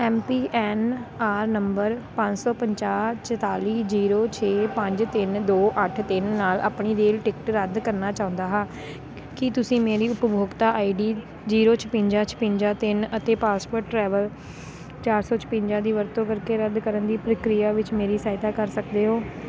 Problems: constant background noise